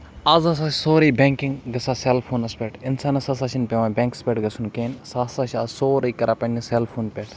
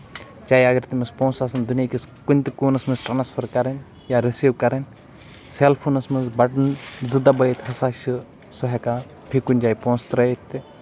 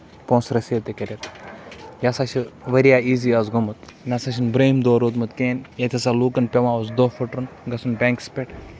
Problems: constant background noise